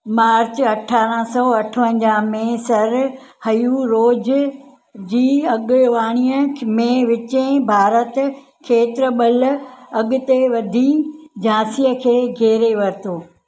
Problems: constant background noise